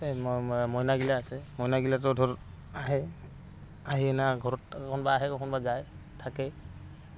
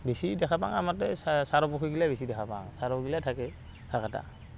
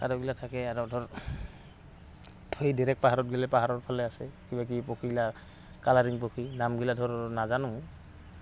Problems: constant background noise